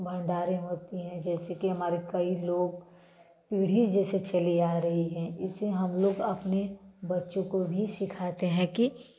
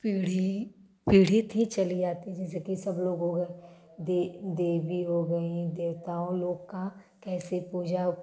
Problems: none marked